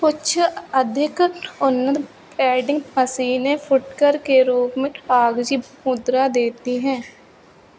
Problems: constant background noise